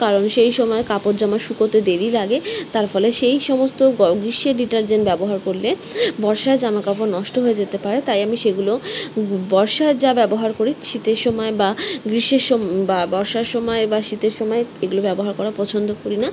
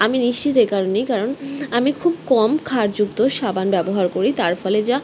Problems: constant background noise